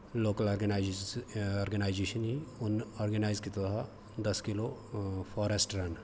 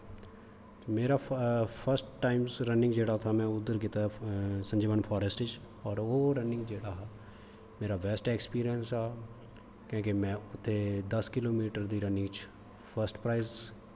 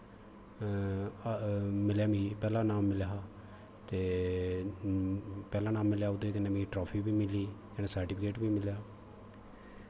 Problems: constant background noise